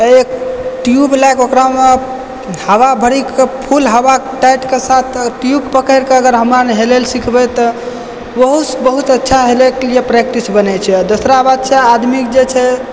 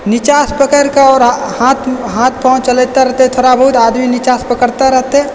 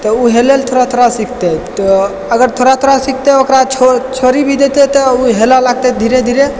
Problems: background sounds at intervals